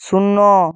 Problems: none marked